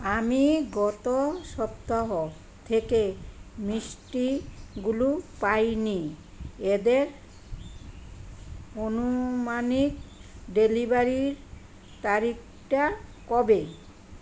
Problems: constant background noise